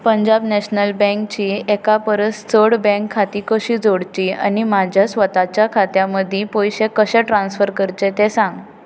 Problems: background conversations at intervals